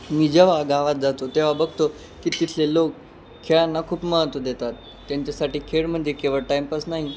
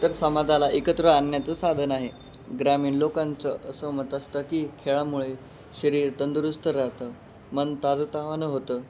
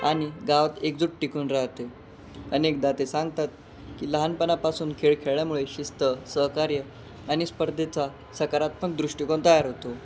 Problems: constant background noise